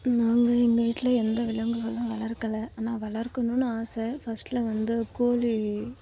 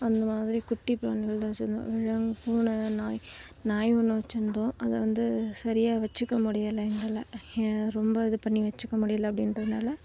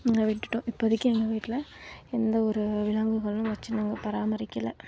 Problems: low volume